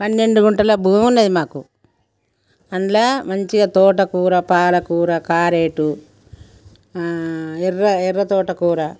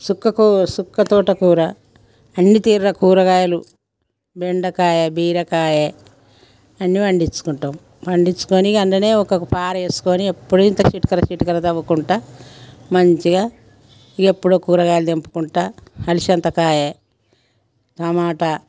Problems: background conversations at intervals